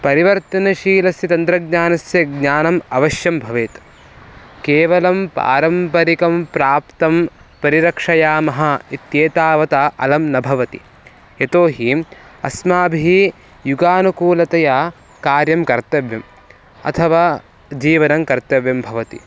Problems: none marked